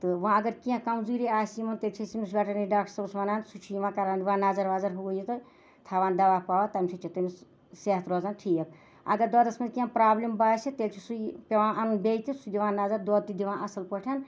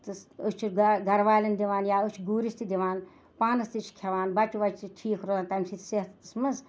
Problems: none marked